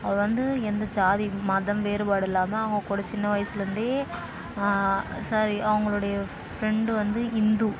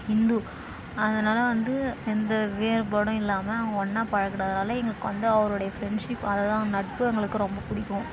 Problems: constant background noise, background conversations at intervals